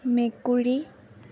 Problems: constant background noise